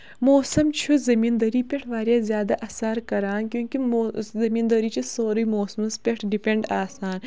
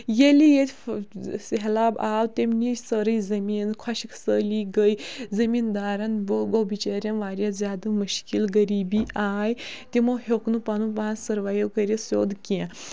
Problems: background sounds at intervals